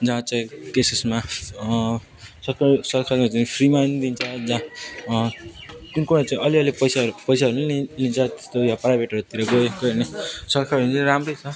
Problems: constant background noise, continuous background conversations